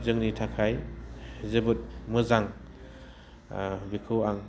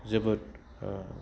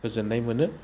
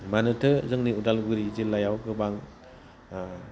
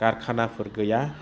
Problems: low volume